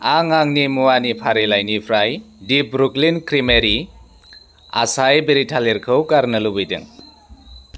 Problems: constant background noise